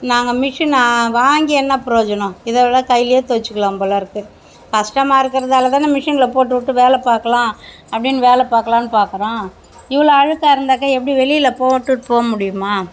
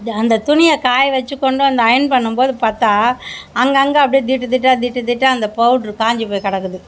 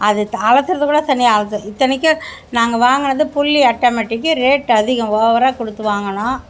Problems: background sounds at intervals